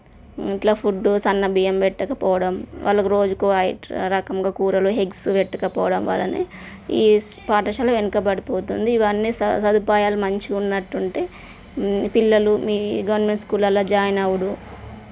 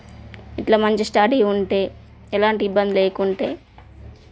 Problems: none marked